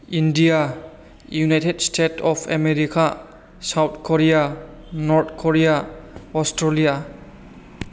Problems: none marked